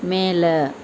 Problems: constant background noise